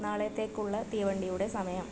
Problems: constant background noise, low volume